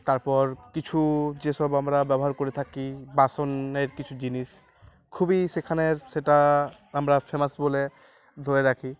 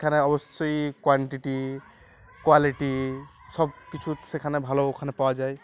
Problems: none marked